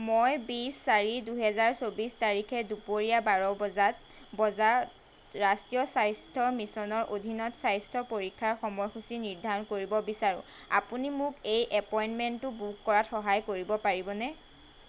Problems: constant background noise